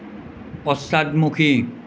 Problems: constant background noise